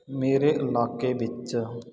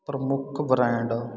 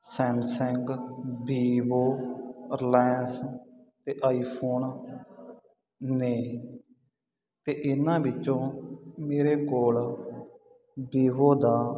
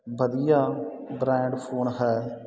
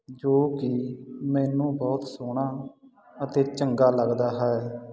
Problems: continuous background conversations